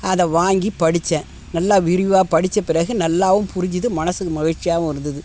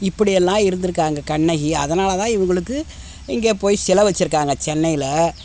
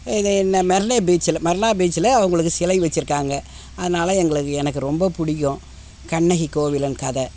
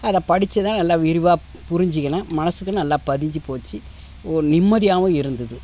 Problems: constant background noise